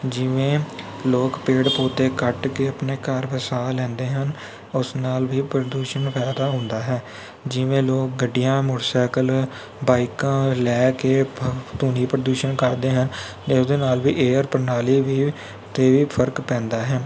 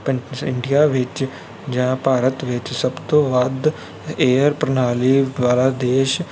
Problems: background sounds at intervals